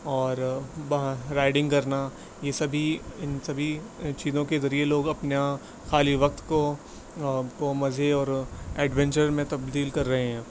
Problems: constant background noise